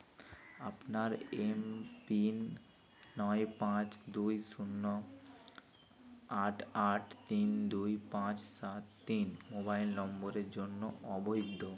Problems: constant background noise, continuous background conversations